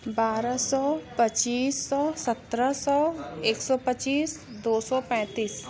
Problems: constant background noise, background conversations at intervals